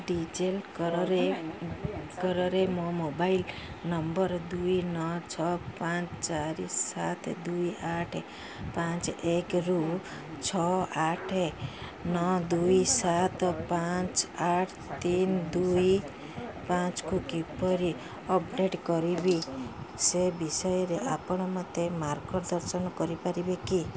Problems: constant background noise